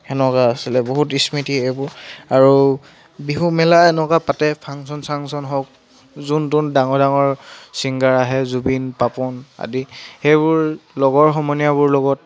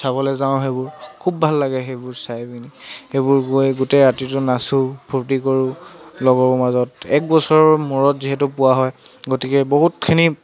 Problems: none marked